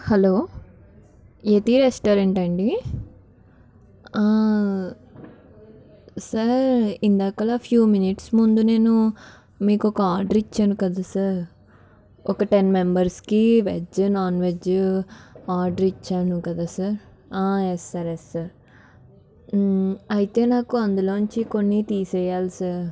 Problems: background conversations at intervals